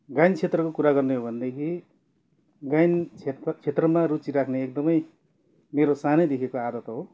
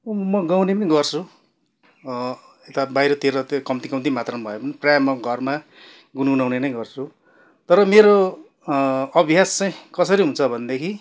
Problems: none marked